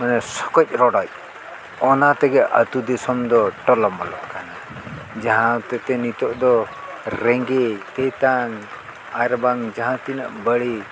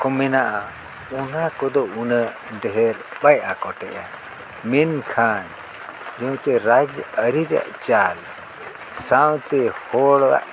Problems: constant background noise